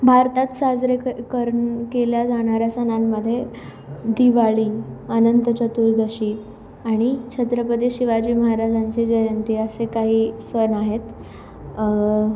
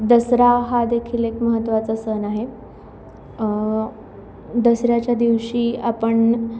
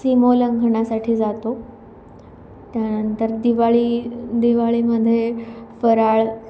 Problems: none marked